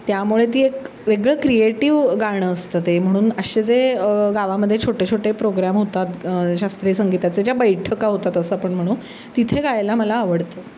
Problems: none marked